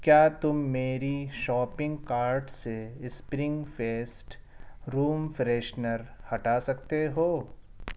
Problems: none marked